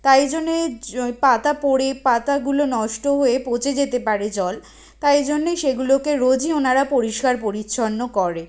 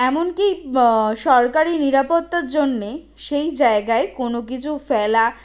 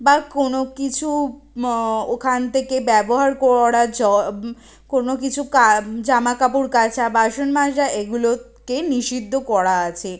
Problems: none marked